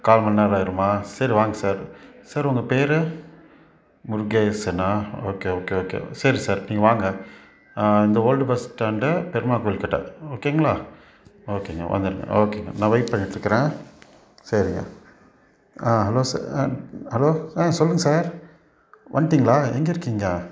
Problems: background sounds at intervals